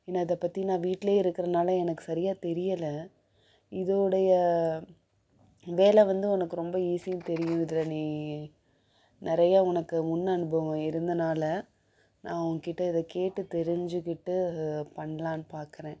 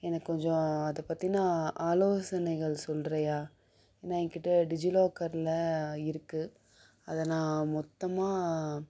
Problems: background sounds at intervals